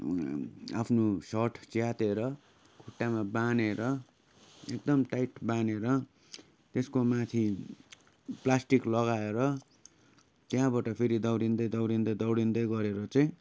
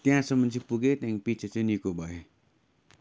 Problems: background sounds at intervals